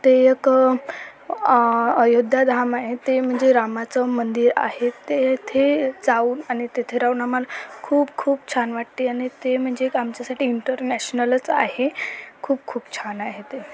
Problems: constant background noise, continuous background conversations